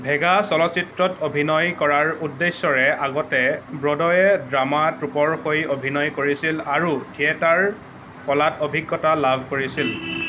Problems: none marked